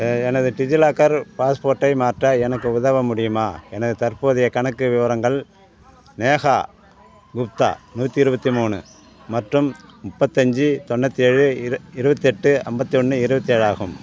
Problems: background sounds at intervals